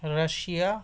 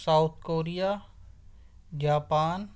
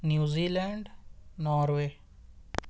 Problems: none marked